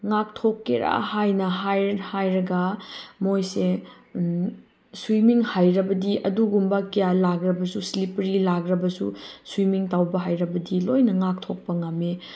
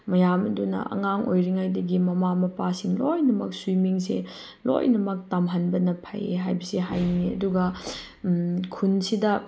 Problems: none marked